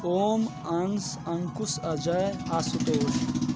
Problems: constant background noise, background conversations at intervals